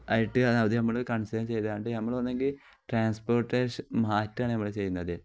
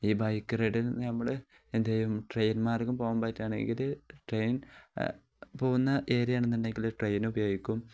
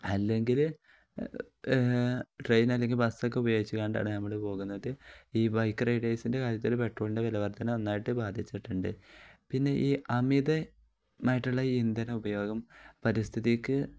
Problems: none marked